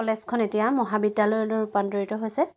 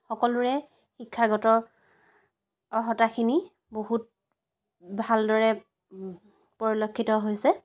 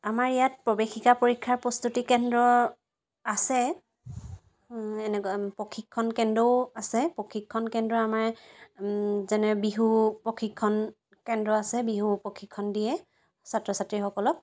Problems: constant background noise